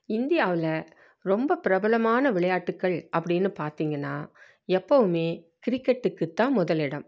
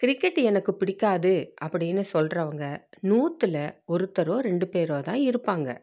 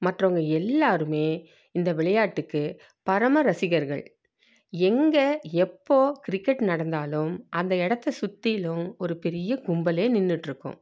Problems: none marked